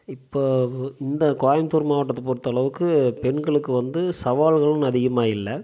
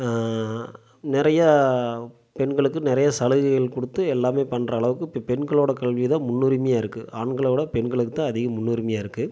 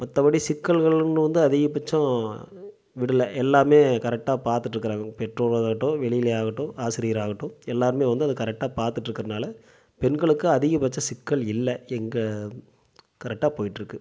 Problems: none marked